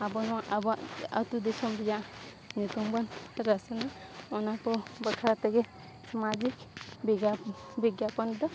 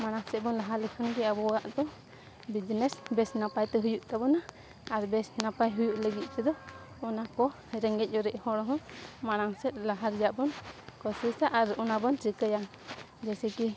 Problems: constant background noise